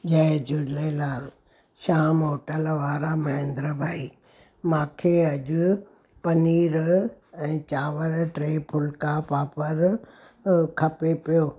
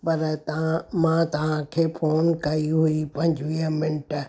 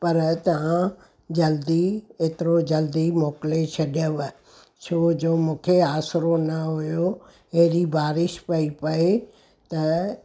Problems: none marked